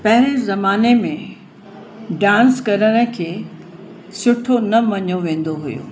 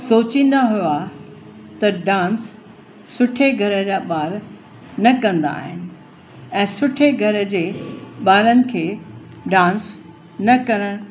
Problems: constant background noise, echo